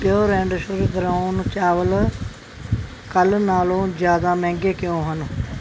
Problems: background sounds at intervals